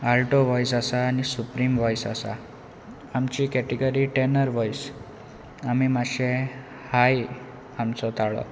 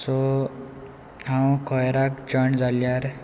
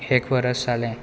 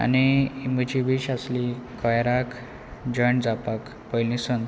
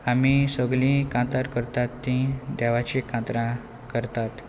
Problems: none marked